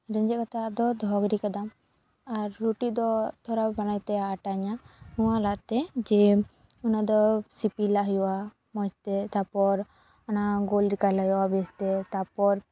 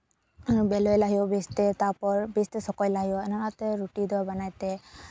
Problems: background sounds at intervals